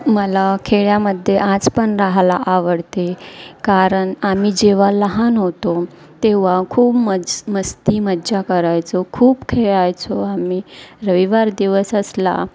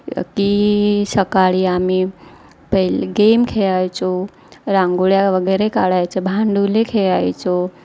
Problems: constant background noise, background conversations at intervals